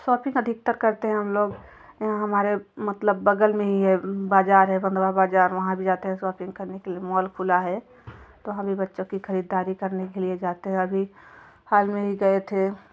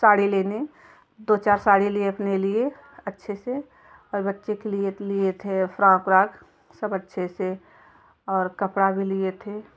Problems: background sounds at intervals, continuous background conversations